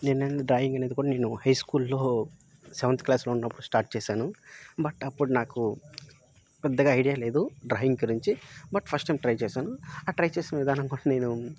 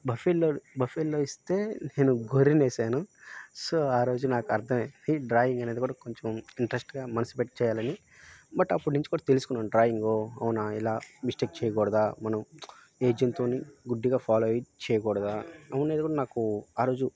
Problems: background sounds at intervals